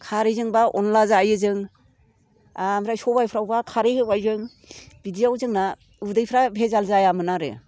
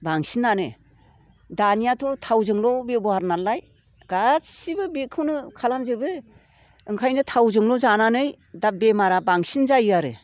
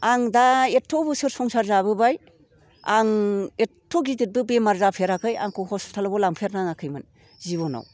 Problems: none marked